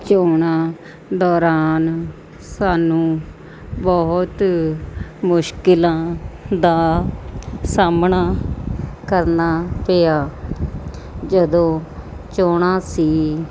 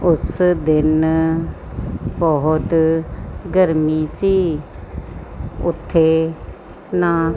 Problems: background sounds at intervals